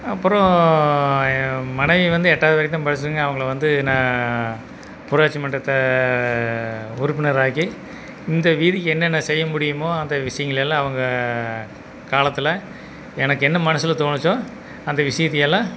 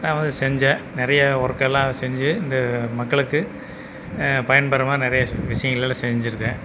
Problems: background sounds at intervals